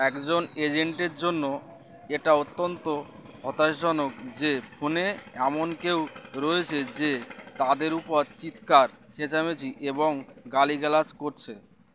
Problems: constant background noise